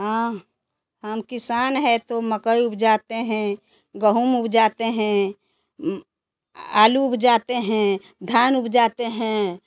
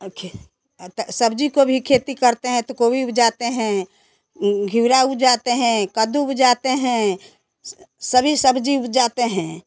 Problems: background sounds at intervals